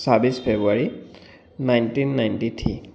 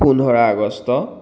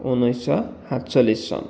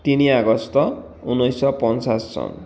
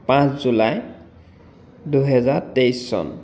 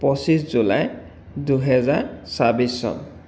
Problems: background sounds at intervals